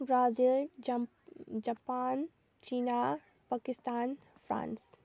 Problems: low volume